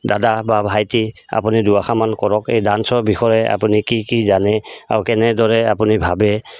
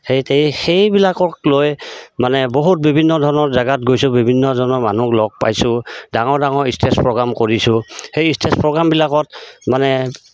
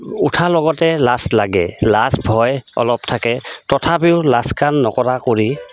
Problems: constant background noise